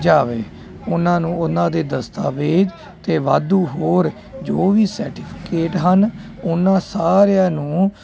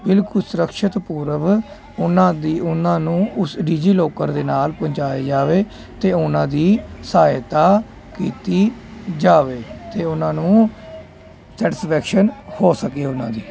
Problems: constant background noise